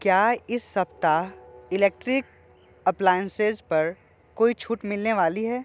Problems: none marked